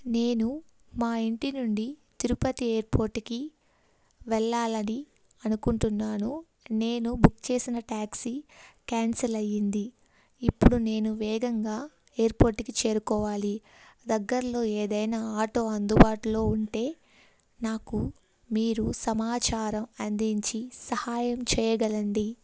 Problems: none marked